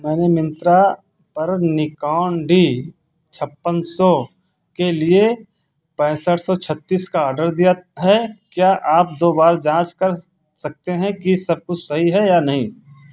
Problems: none marked